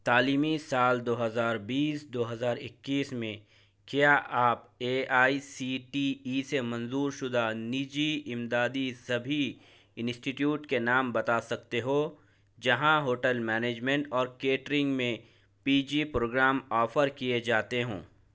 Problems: none marked